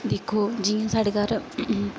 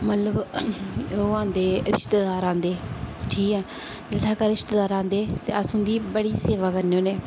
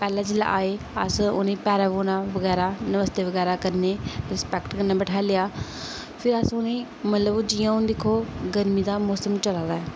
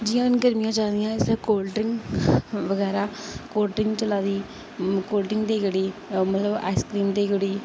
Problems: constant background noise